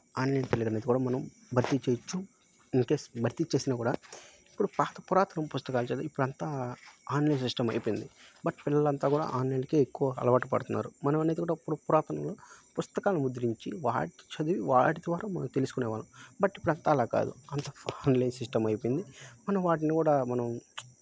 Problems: background sounds at intervals